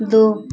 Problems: constant background noise